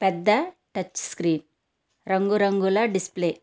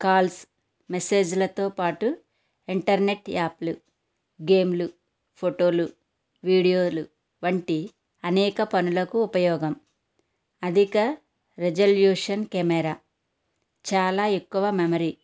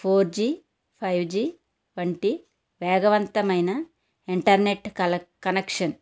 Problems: constant background noise